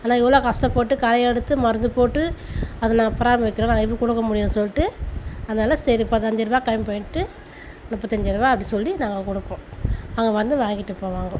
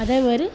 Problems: constant background noise